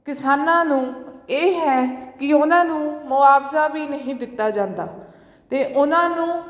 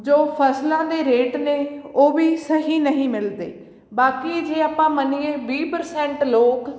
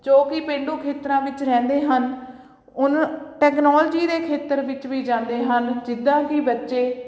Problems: background sounds at intervals